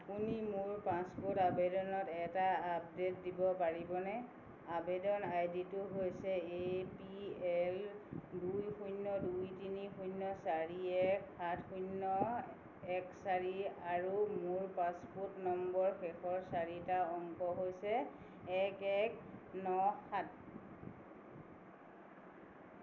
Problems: background sounds at intervals